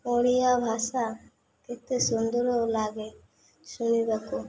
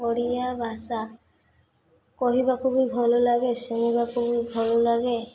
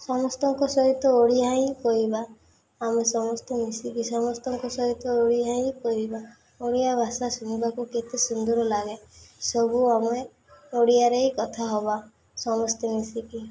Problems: none marked